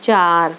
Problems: background sounds at intervals